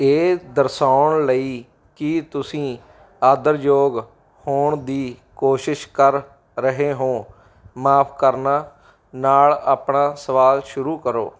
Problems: background sounds at intervals